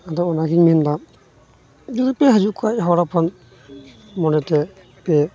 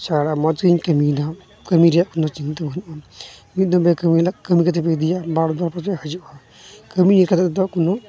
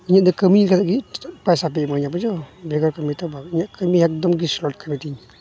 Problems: constant background noise, continuous background conversations